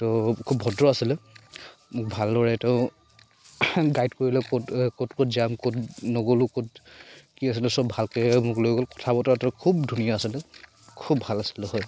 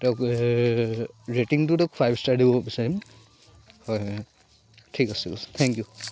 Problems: none marked